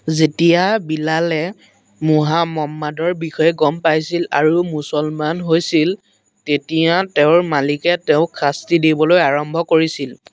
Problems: constant background noise